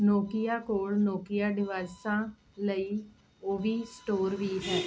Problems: constant background noise